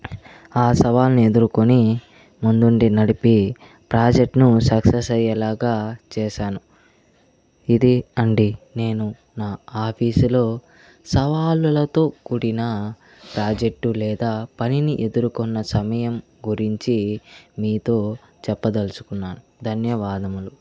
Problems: constant background noise, background conversations at intervals